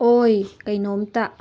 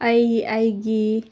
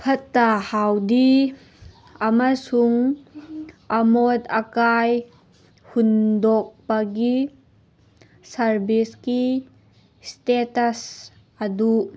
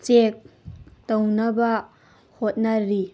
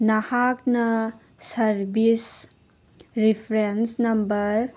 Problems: background sounds at intervals